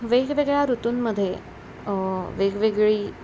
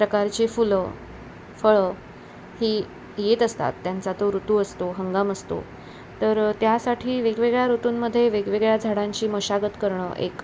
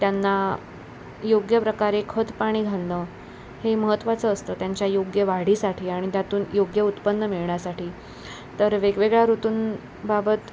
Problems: none marked